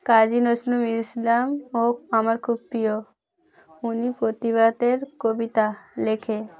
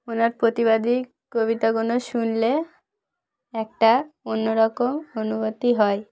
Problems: background sounds at intervals